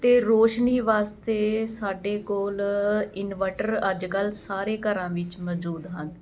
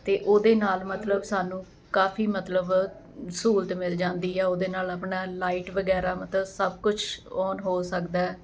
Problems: constant background noise